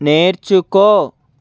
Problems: constant background noise